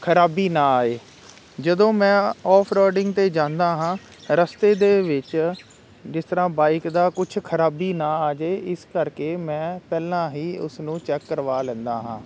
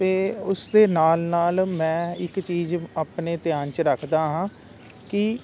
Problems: constant background noise